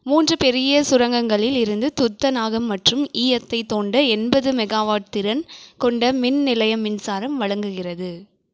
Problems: none marked